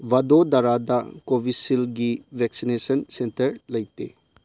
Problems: low volume